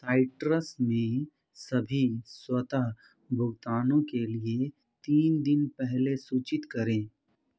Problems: background conversations at intervals